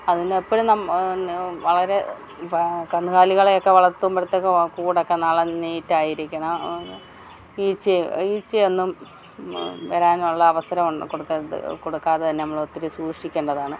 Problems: background sounds at intervals